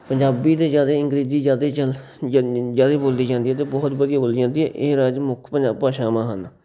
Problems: none marked